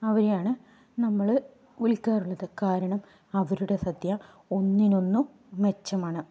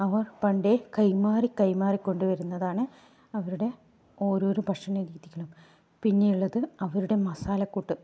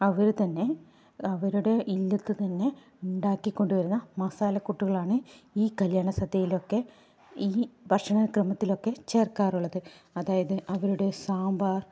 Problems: low volume